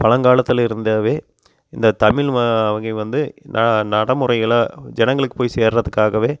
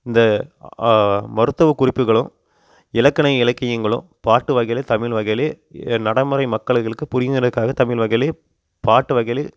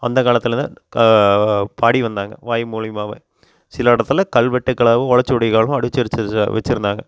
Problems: constant background noise